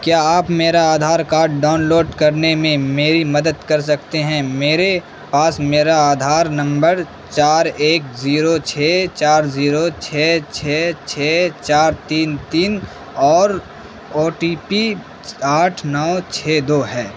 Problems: constant background noise